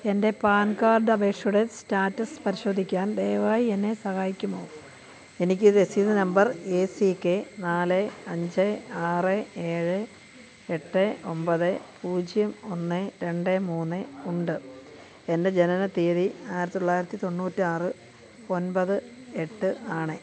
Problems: none marked